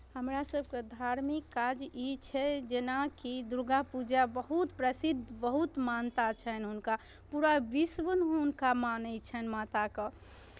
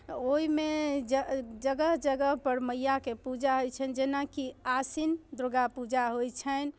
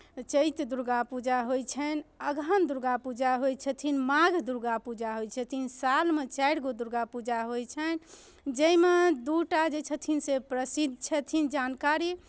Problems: none marked